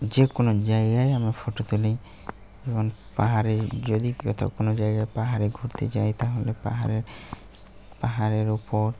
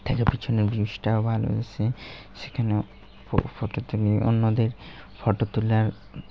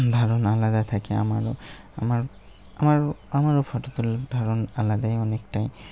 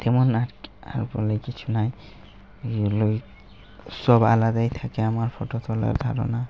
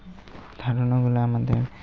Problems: none marked